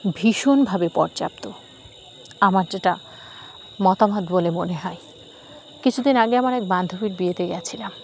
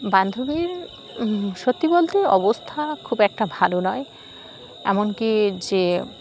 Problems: none marked